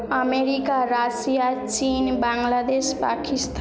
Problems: background conversations at intervals